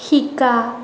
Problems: constant background noise